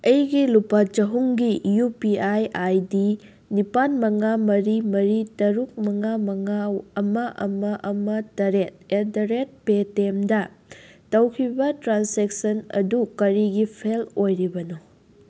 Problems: constant background noise